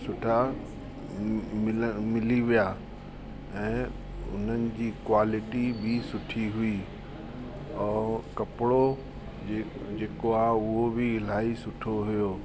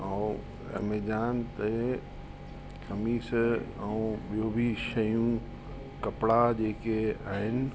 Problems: constant background noise